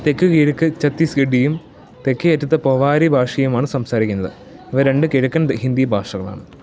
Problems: background sounds at intervals